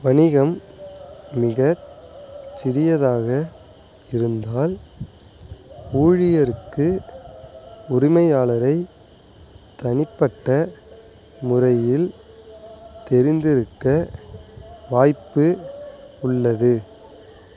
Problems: background sounds at intervals